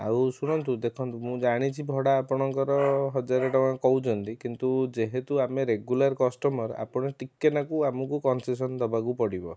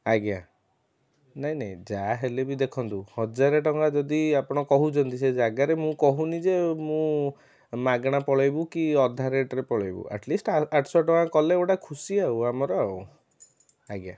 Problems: background sounds at intervals, background conversations at intervals